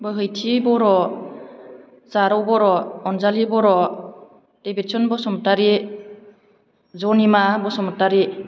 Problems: none marked